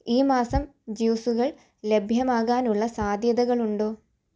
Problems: none marked